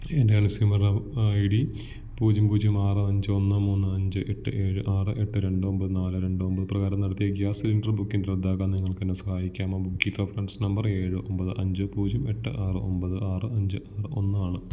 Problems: low volume